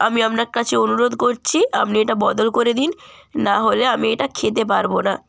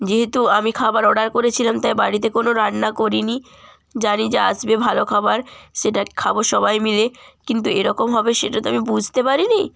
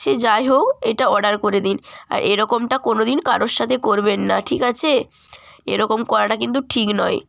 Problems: constant background noise